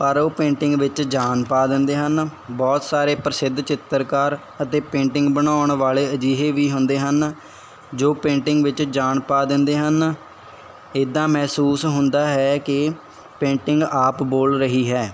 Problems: none marked